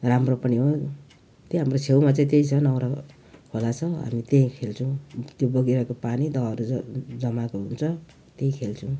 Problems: background sounds at intervals